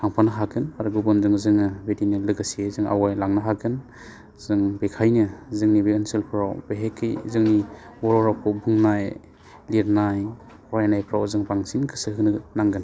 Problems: constant background noise